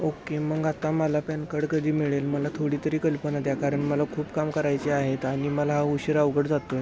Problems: constant background noise